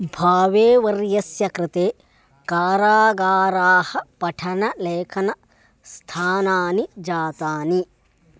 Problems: background sounds at intervals